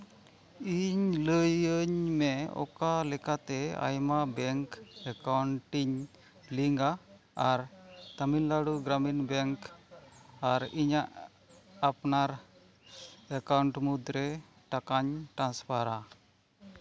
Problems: none marked